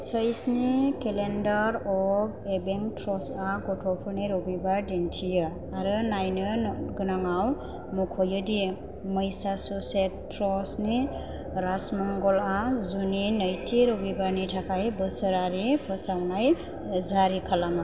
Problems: none marked